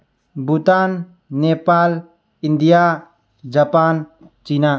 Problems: low volume